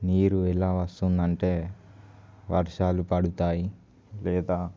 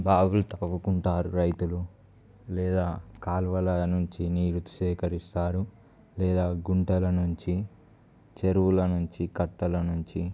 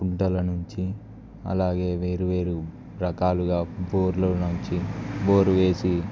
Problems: none marked